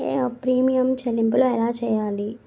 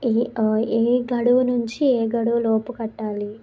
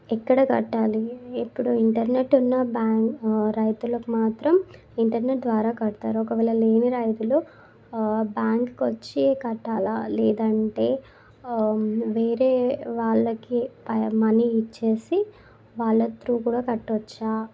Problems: constant background noise